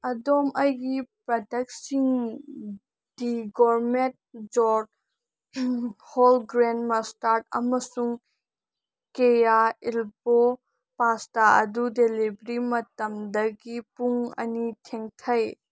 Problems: none marked